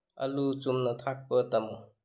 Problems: low volume